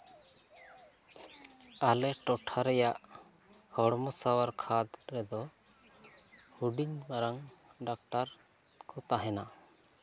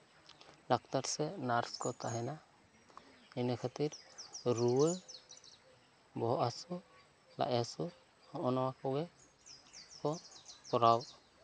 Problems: background conversations at intervals